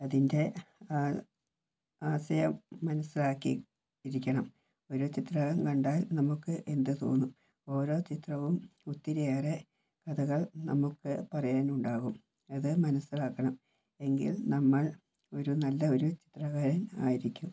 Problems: low volume